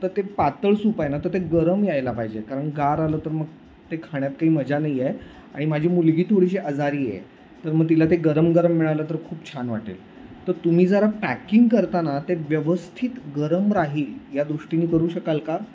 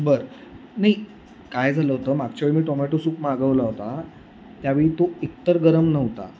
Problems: constant background noise